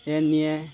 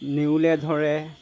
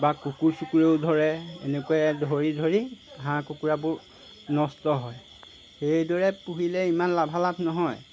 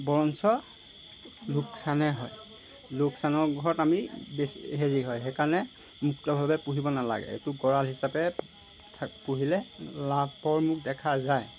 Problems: background sounds at intervals